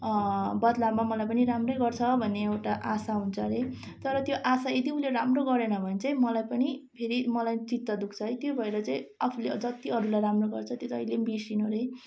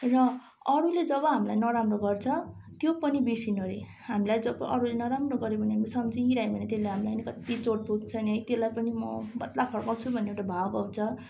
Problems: constant background noise